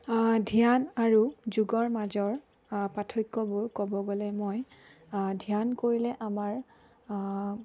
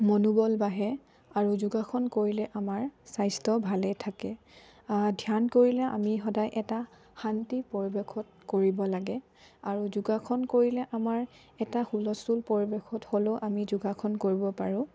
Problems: low volume